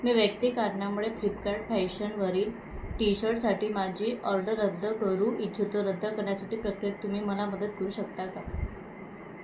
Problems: constant background noise